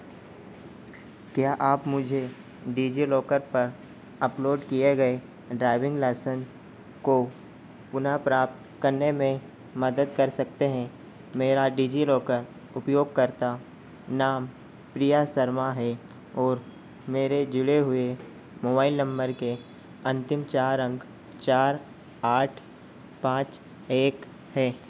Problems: constant background noise